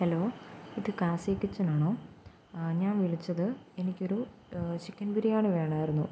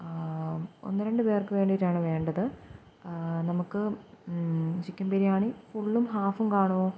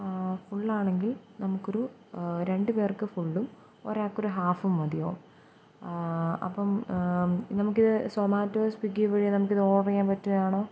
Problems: background sounds at intervals